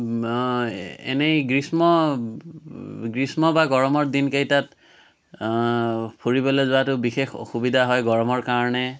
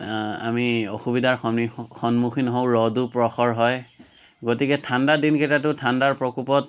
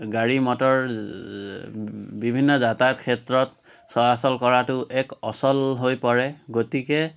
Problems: none marked